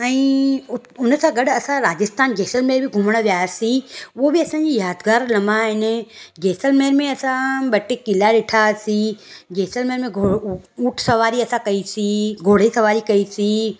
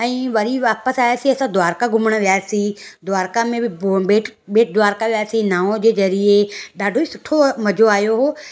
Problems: none marked